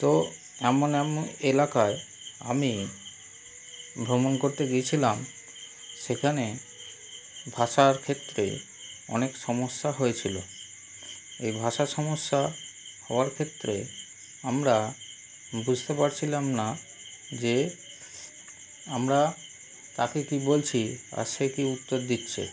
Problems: constant background noise